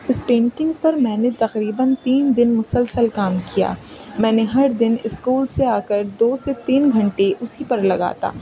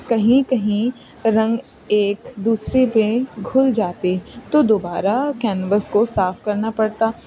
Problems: constant background noise